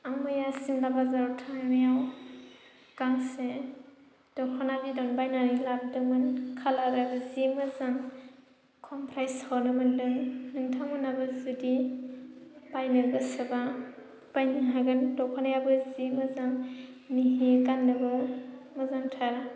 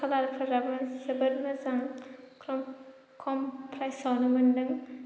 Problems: constant background noise